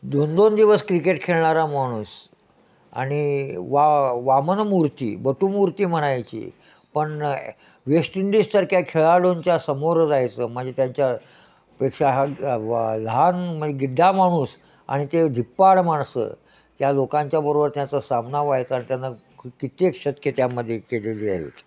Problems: none marked